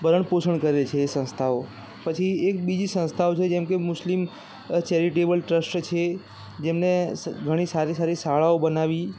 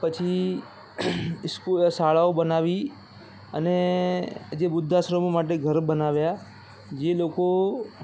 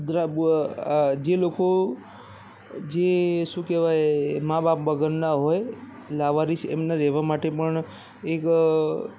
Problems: constant background noise, background conversations at intervals